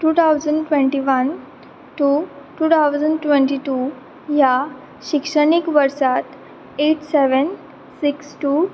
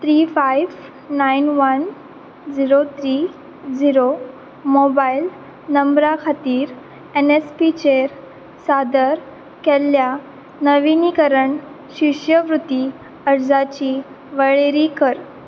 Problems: none marked